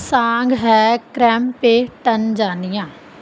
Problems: background sounds at intervals